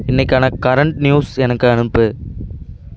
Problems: constant background noise